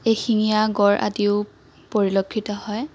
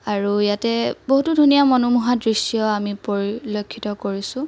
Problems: constant background noise